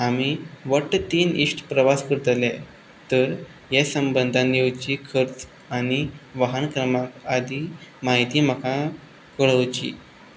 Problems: none marked